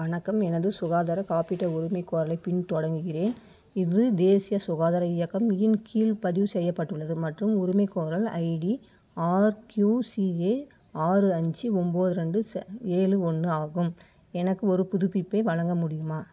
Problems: none marked